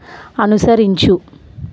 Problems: constant background noise